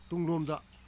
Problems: low volume